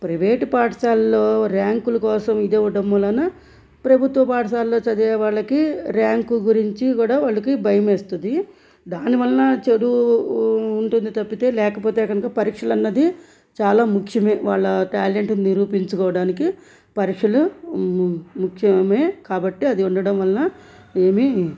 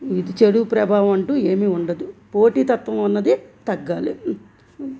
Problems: background sounds at intervals